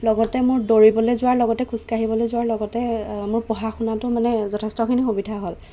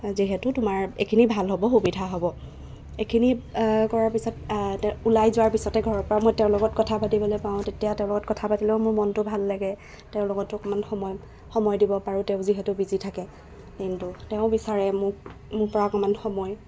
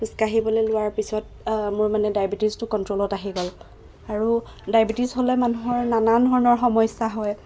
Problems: none marked